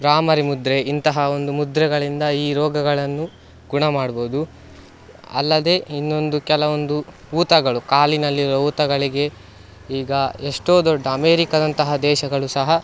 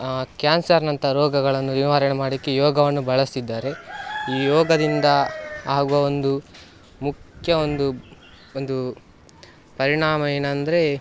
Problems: background sounds at intervals